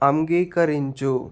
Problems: constant background noise